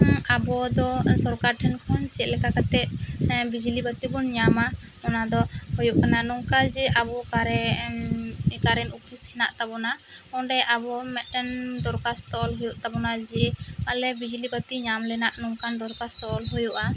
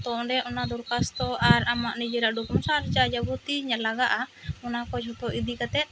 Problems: constant background noise